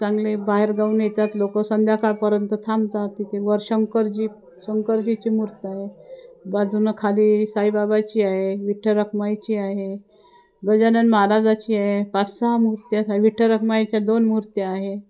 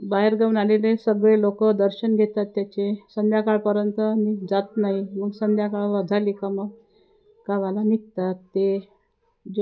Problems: constant background noise, continuous background conversations